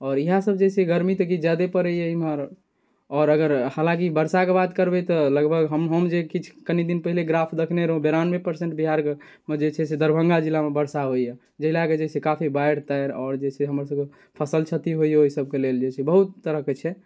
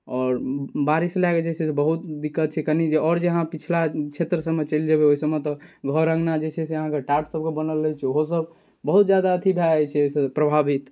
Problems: none marked